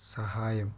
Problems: none marked